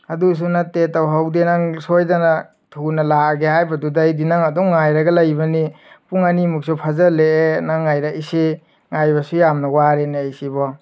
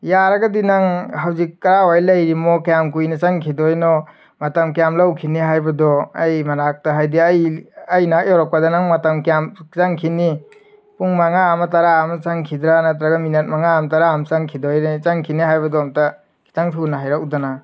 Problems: background sounds at intervals